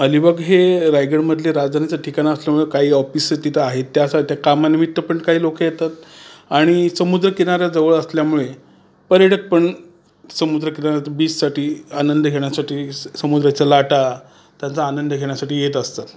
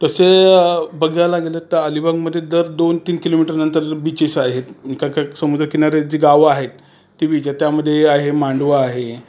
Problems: constant background noise